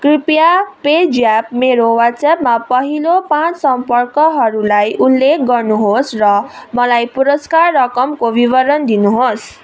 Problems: none marked